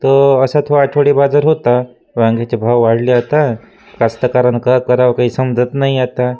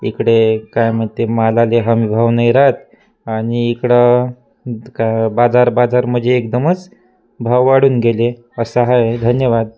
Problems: constant background noise, continuous background conversations